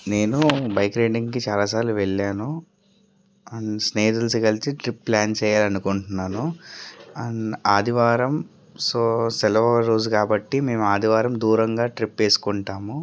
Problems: none marked